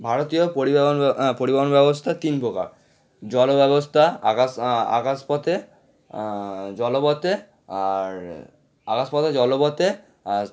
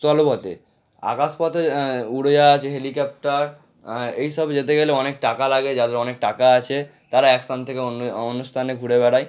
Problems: none marked